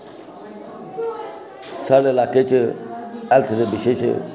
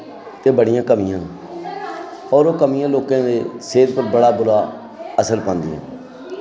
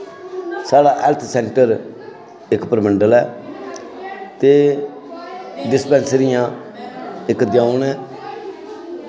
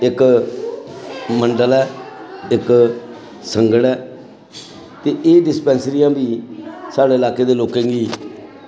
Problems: constant background noise